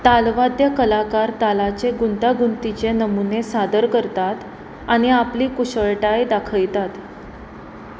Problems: constant background noise